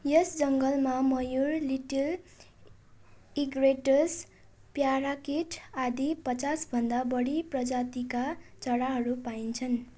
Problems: none marked